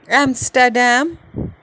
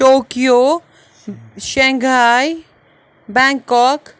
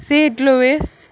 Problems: none marked